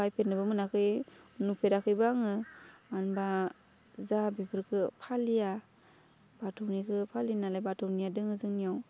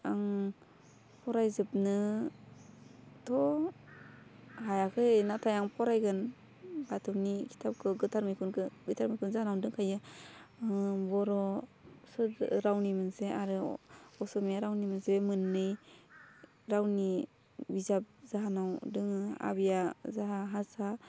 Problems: low volume